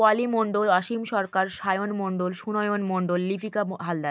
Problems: constant background noise